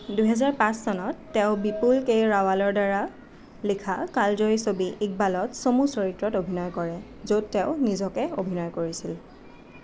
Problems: none marked